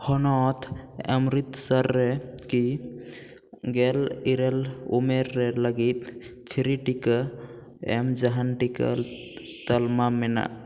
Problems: echo